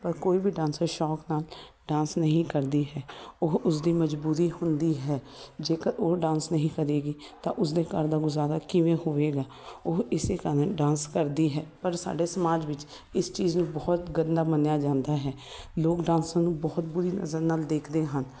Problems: constant background noise